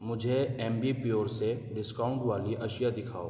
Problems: none marked